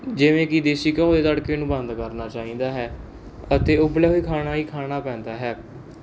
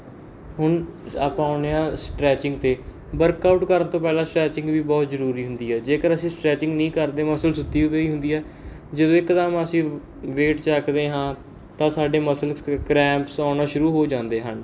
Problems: background sounds at intervals